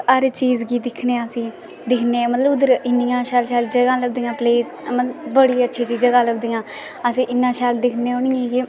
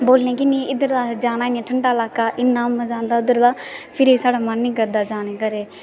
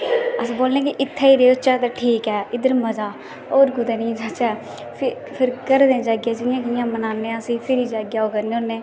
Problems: constant background noise